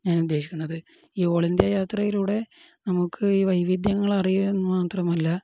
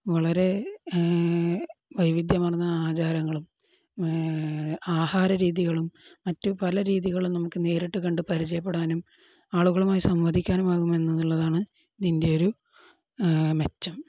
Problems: none marked